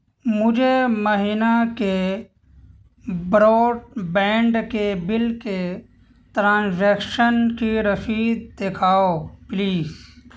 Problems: constant background noise